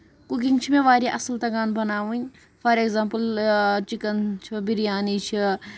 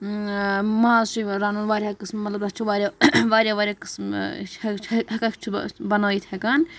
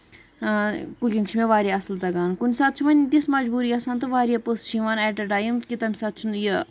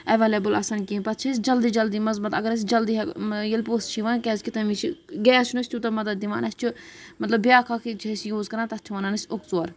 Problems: none marked